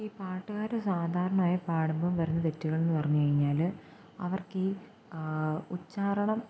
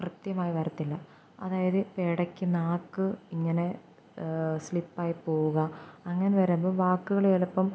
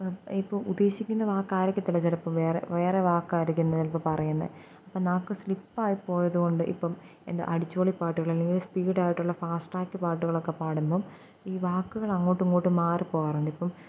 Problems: background sounds at intervals